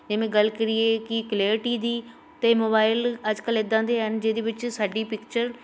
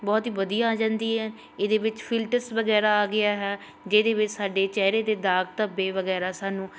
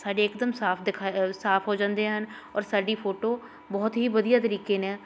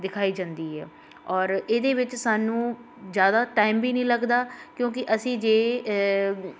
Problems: constant background noise